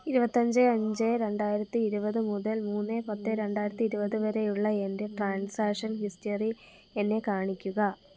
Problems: none marked